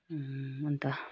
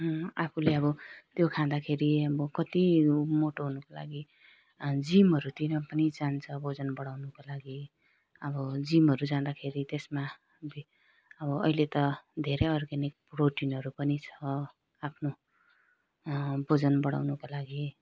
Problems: low volume